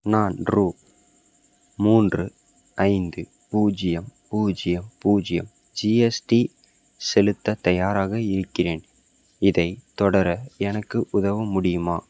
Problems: none marked